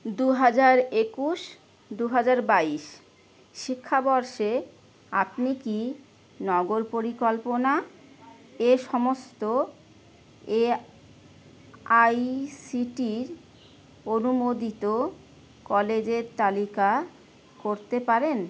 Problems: constant background noise